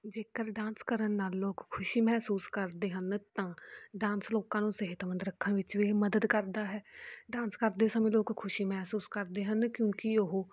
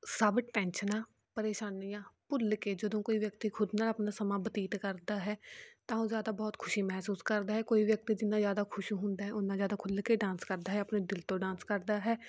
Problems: background sounds at intervals